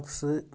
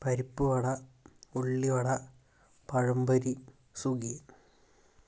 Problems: none marked